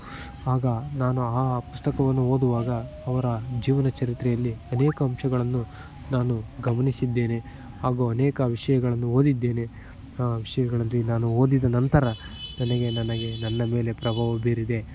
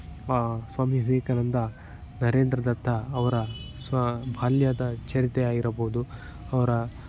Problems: background sounds at intervals